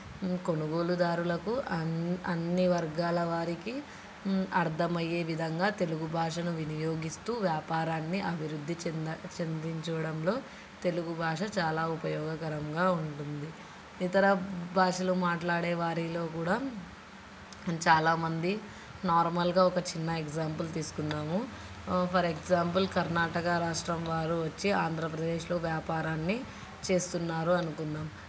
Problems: constant background noise, background conversations at intervals